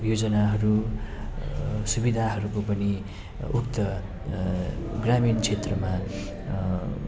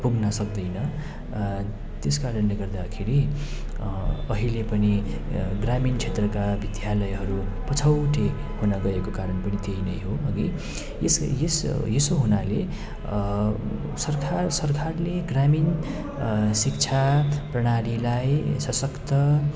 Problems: constant background noise